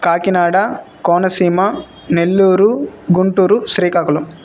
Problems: background sounds at intervals